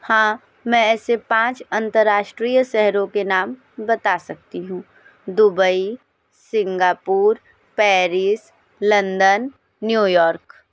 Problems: background sounds at intervals